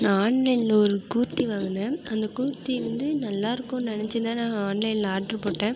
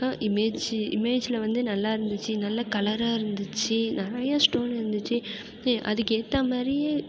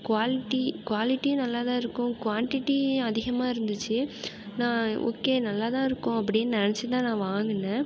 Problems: none marked